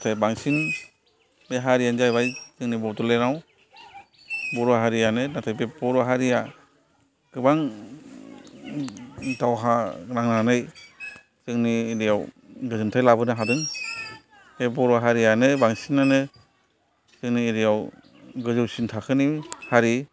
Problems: background sounds at intervals, continuous background conversations